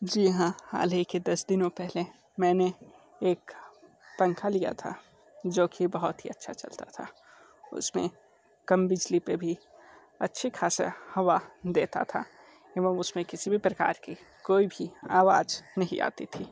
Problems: background sounds at intervals